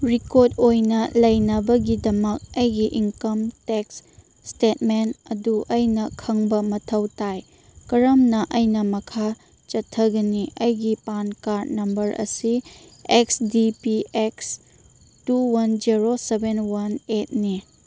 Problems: none marked